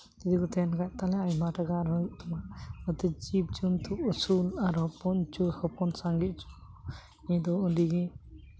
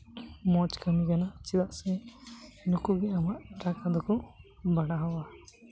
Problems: none marked